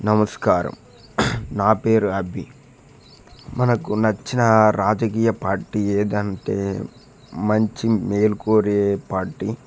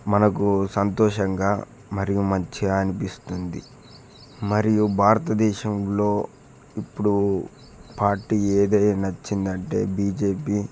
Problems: background sounds at intervals